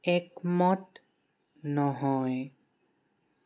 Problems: constant background noise